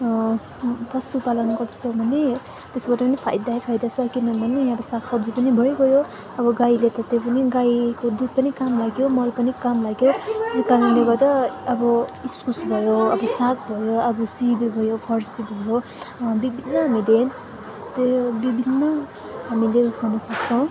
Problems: constant background noise, continuous background conversations